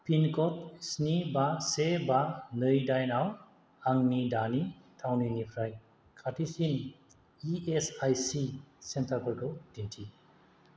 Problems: constant background noise